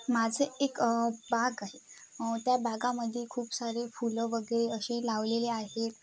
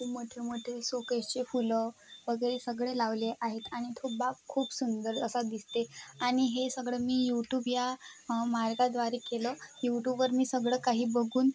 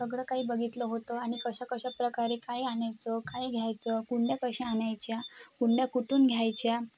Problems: constant background noise, background conversations at intervals